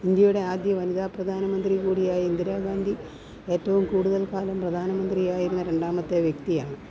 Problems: constant background noise